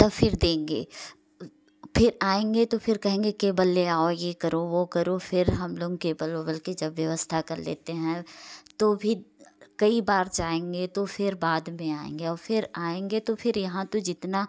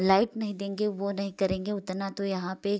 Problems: constant background noise